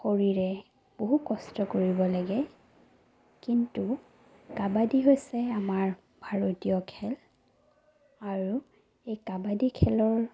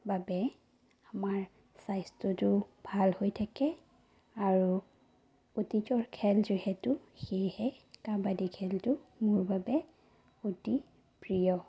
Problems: low volume